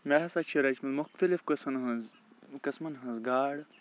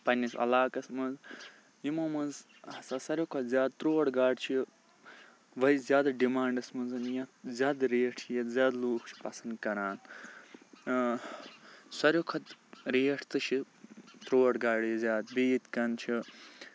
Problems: background sounds at intervals